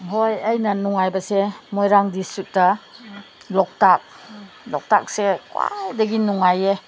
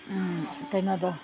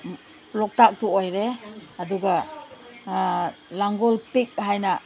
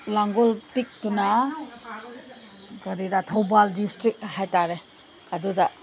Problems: background sounds at intervals, background conversations at intervals